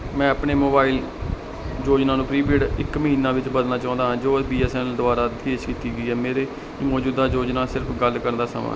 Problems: none marked